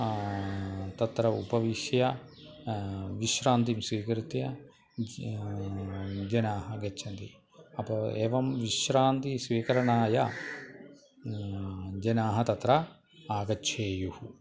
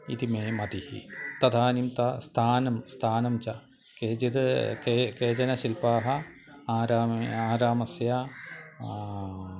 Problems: constant background noise